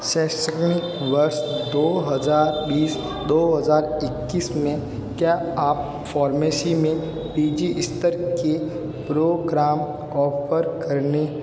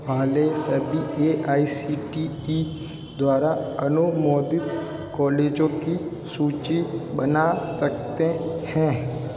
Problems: constant background noise